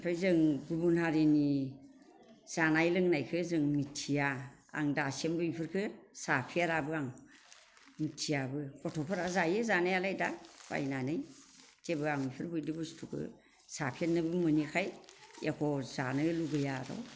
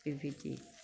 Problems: constant background noise